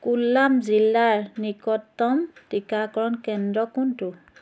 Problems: constant background noise